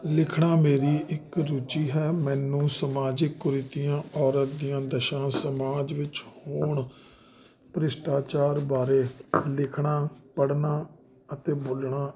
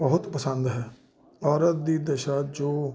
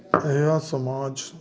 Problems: constant background noise